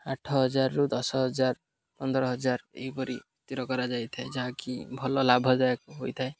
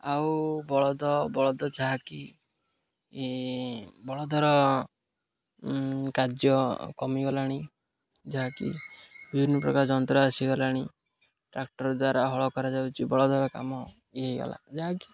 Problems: none marked